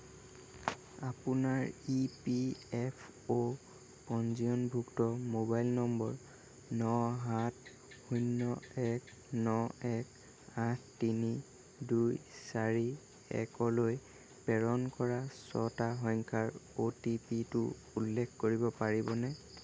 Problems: none marked